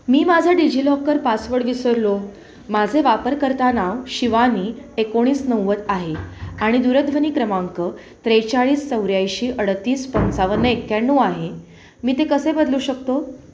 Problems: constant background noise, background conversations at intervals